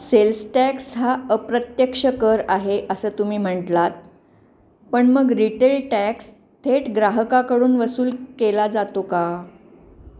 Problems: none marked